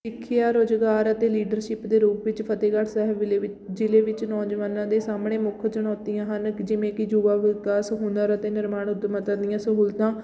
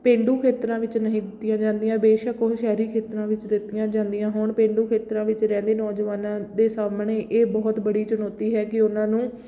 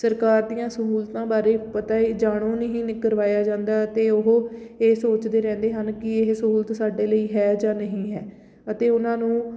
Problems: background sounds at intervals